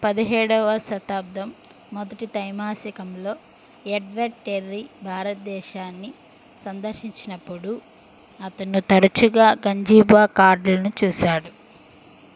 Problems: constant background noise